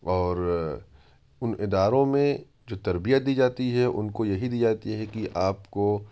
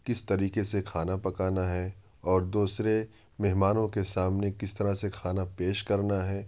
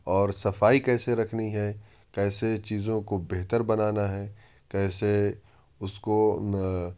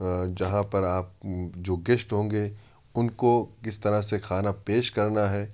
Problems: constant background noise